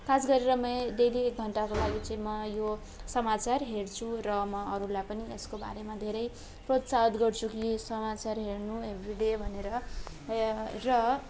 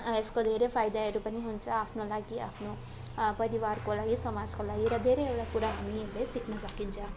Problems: constant background noise